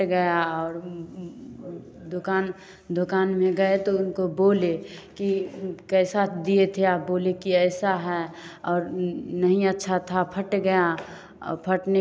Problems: none marked